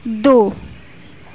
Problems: none marked